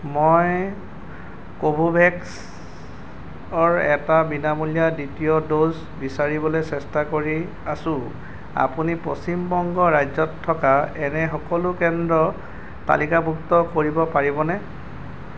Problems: none marked